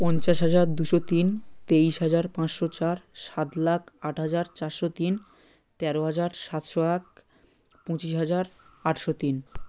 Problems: none marked